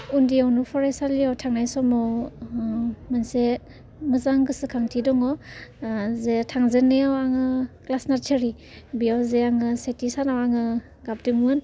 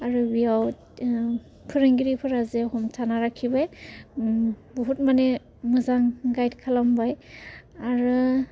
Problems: constant background noise